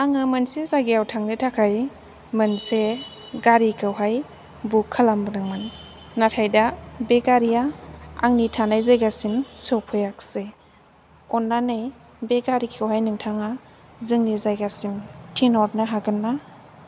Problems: none marked